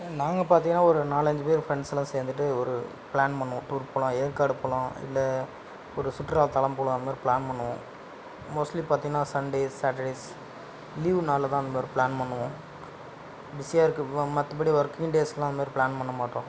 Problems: none marked